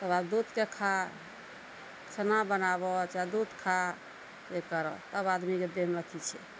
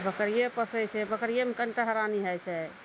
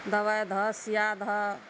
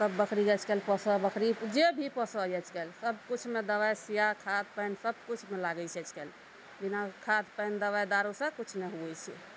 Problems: none marked